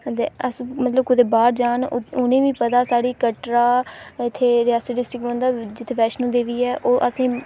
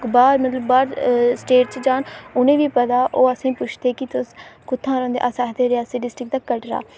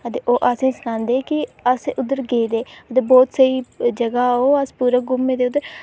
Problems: none marked